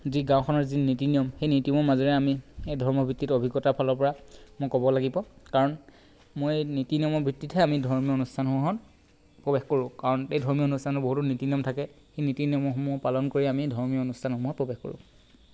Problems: constant background noise